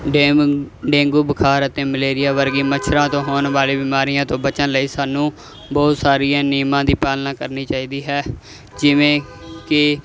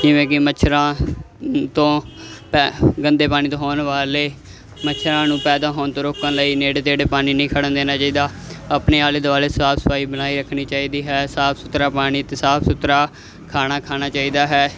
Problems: constant background noise